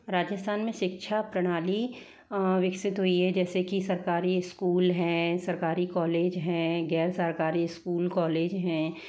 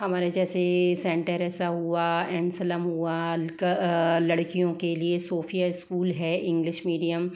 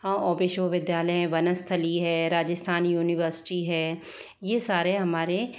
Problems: background sounds at intervals